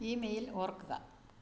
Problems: low volume